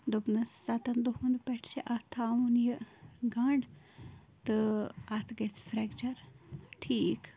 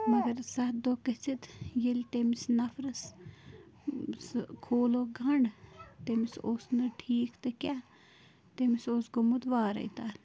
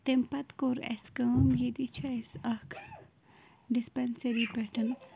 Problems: constant background noise, continuous background conversations, low volume